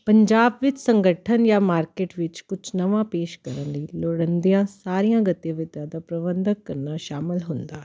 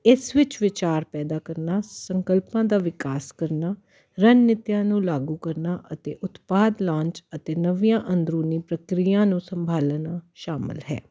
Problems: none marked